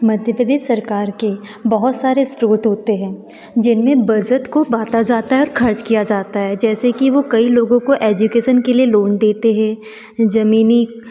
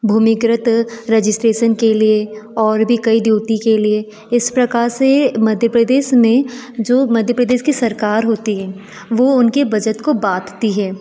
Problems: none marked